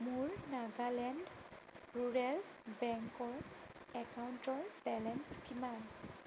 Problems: none marked